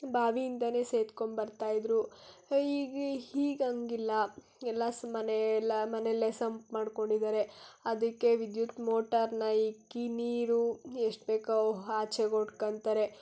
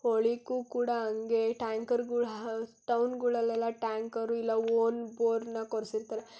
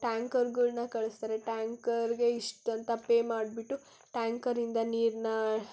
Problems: none marked